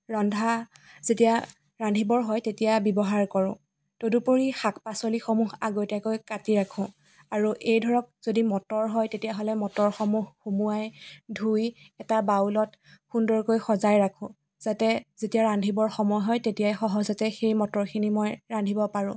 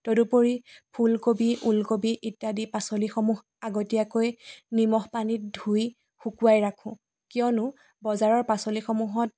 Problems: background sounds at intervals